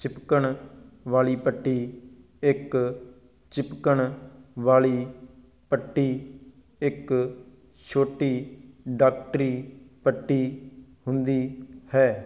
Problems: background sounds at intervals